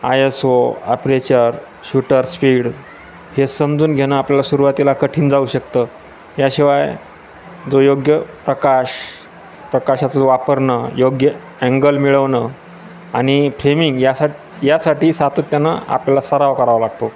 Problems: constant background noise, background conversations at intervals